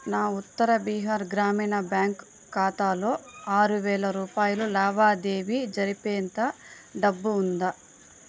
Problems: none marked